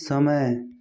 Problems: none marked